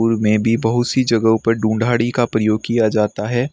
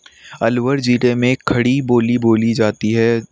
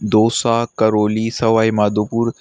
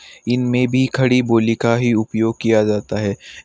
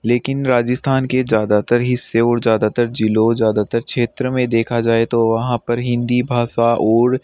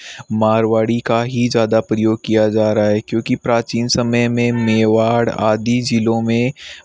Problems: background sounds at intervals